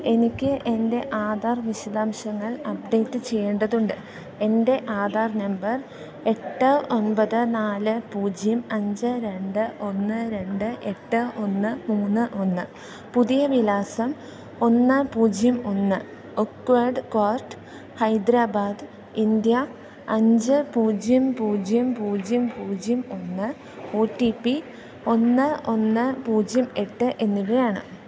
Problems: low volume